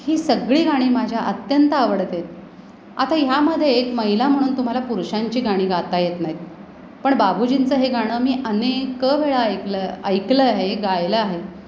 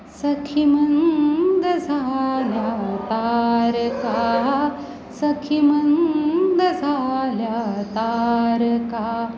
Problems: none marked